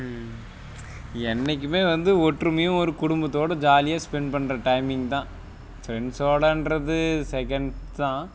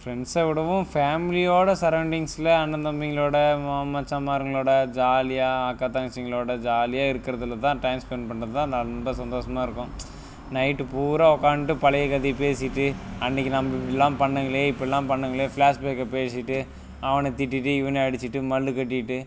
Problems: none marked